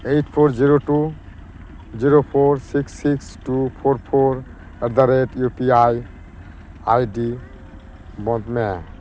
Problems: background sounds at intervals